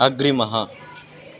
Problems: constant background noise